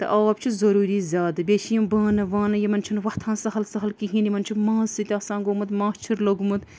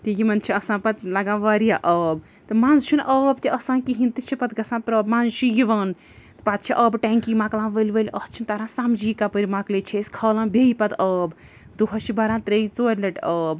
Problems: background sounds at intervals